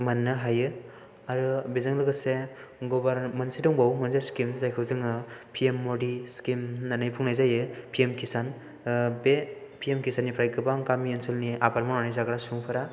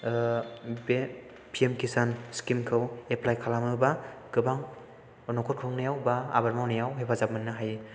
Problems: background sounds at intervals